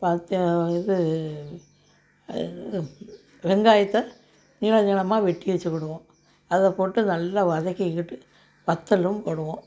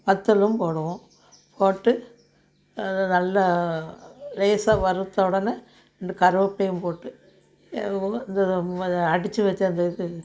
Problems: none marked